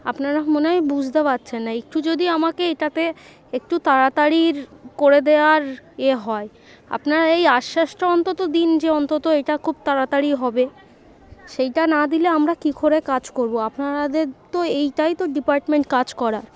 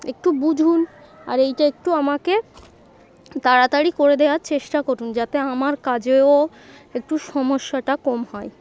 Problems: constant background noise, continuous background conversations